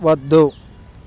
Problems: none marked